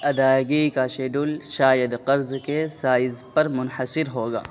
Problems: constant background noise